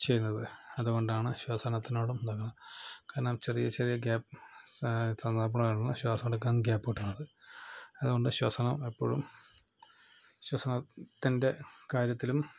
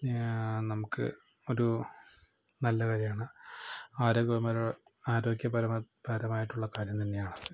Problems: low volume